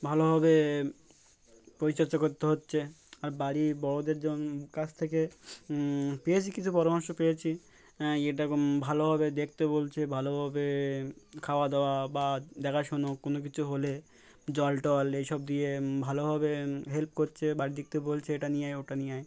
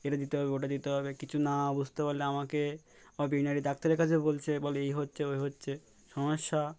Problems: background sounds at intervals